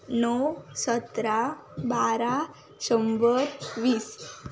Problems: background sounds at intervals